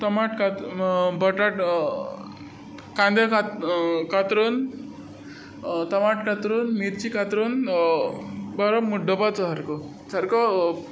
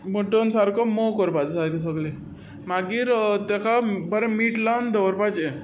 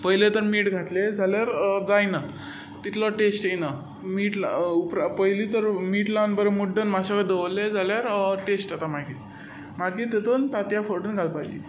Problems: none marked